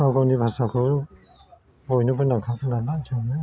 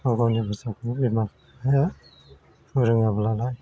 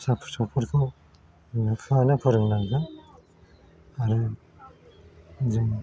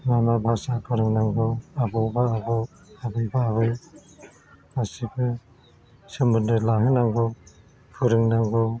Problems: constant background noise